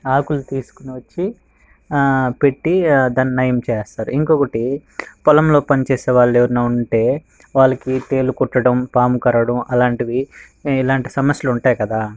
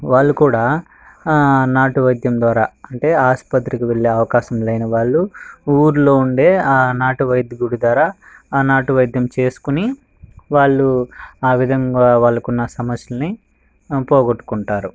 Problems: background sounds at intervals